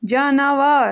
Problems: constant background noise